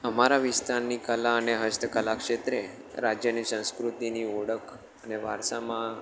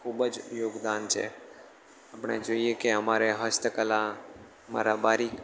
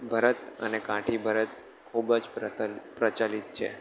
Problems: constant background noise